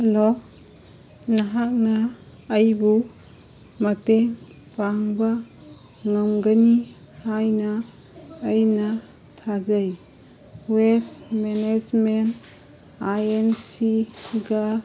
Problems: background sounds at intervals